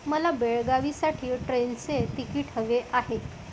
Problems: constant background noise